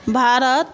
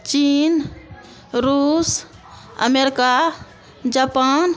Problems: constant background noise